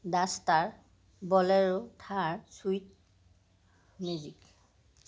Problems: constant background noise